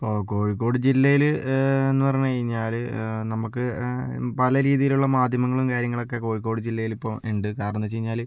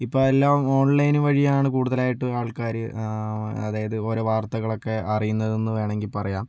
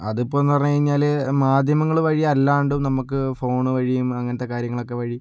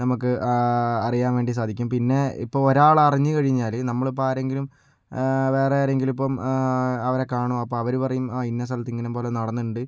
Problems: low volume